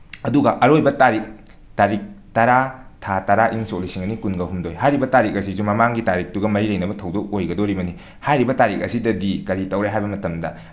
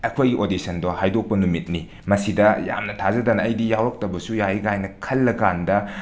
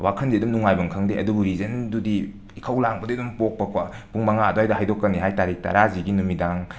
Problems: background sounds at intervals